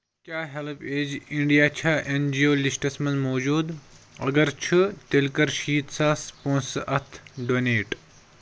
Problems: constant background noise